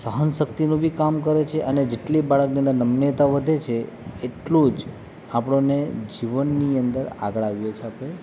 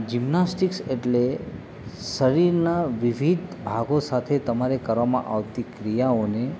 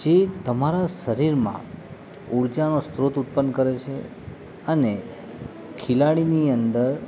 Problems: none marked